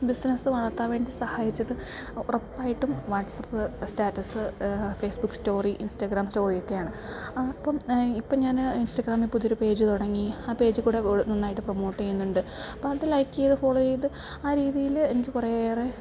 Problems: low volume